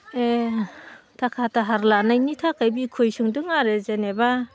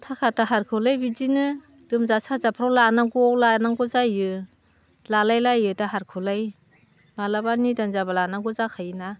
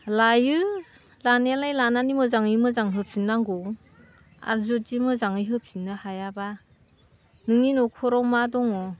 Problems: constant background noise